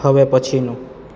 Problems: constant background noise